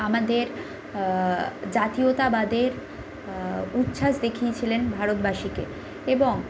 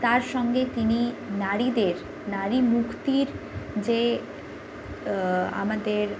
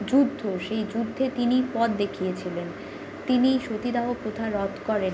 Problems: constant background noise